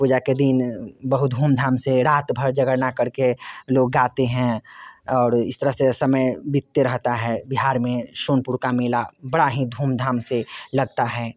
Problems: constant background noise